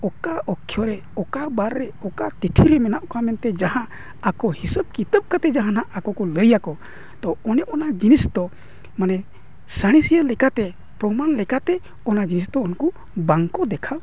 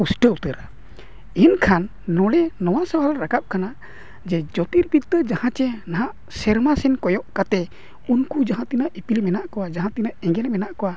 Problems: constant background noise